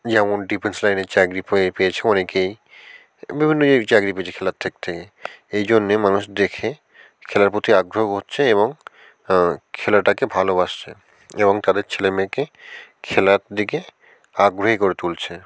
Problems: constant background noise